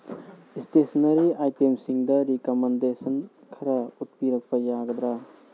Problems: constant background noise